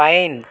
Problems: constant background noise